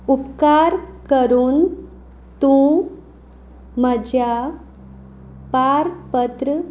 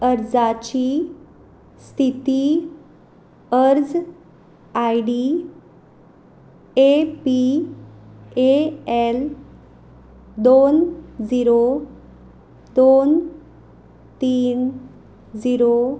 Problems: background sounds at intervals